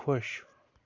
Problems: constant background noise